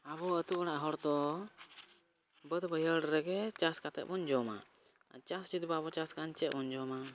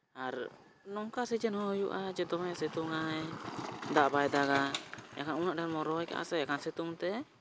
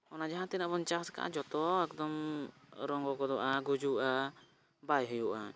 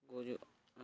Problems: background sounds at intervals